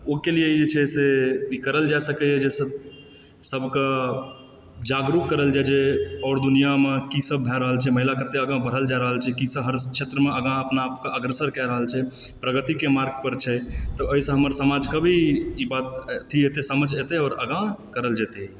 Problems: background sounds at intervals